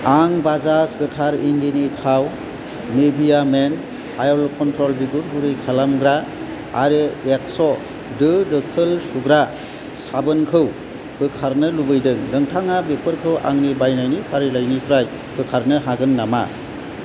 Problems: constant background noise